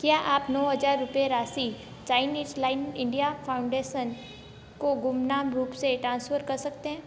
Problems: background sounds at intervals, low volume